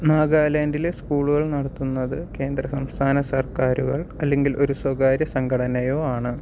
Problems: none marked